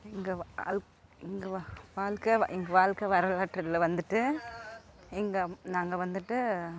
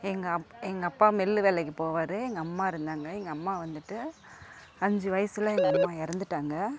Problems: none marked